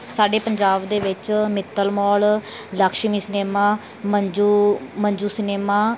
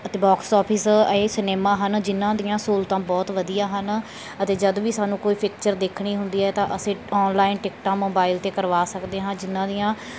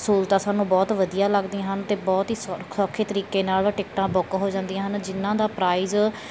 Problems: none marked